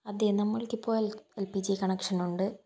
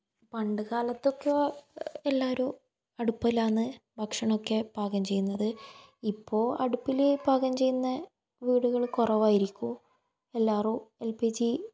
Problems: low volume